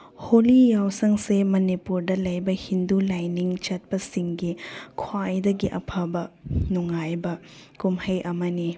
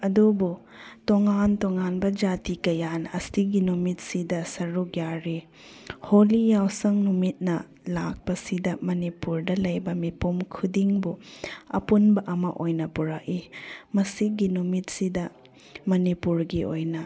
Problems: none marked